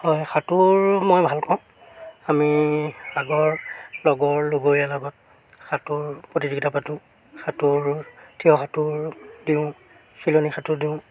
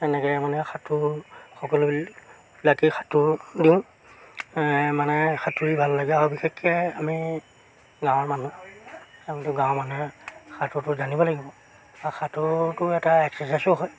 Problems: background sounds at intervals